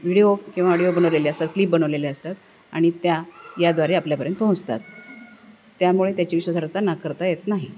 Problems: none marked